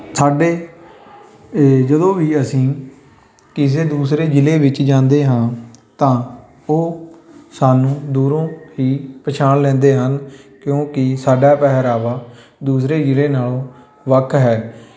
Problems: constant background noise, background conversations at intervals